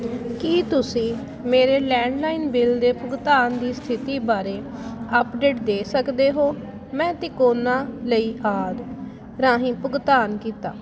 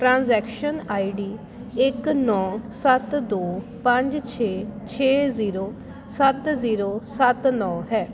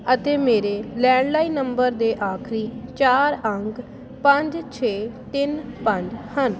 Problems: constant background noise